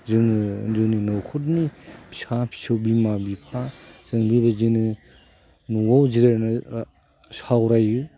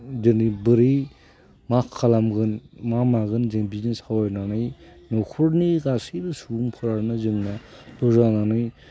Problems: constant background noise